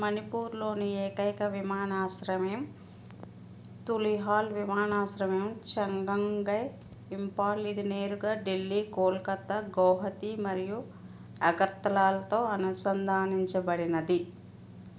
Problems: constant background noise